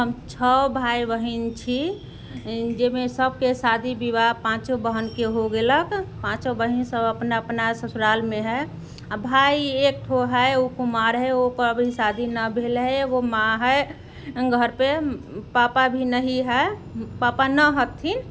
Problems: background sounds at intervals